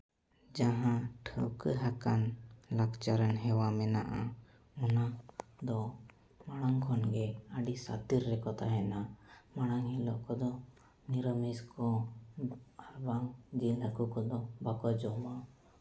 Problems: none marked